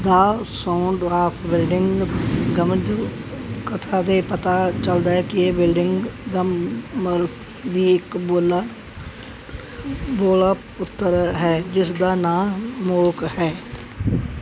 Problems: background sounds at intervals